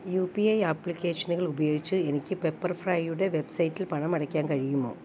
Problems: background sounds at intervals